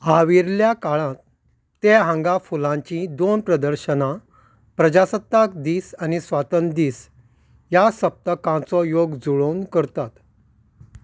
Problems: none marked